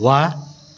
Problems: background sounds at intervals